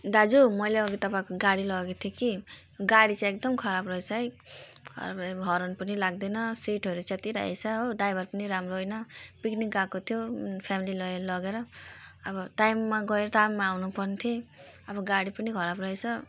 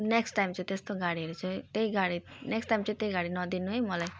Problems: background sounds at intervals